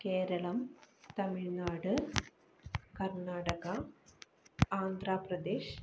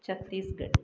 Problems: low volume